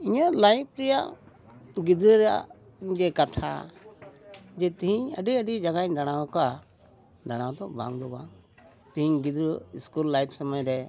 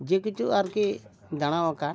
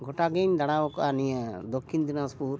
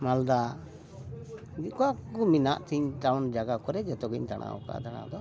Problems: background sounds at intervals, background conversations at intervals